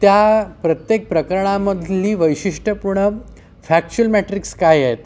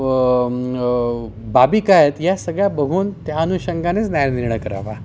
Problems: background sounds at intervals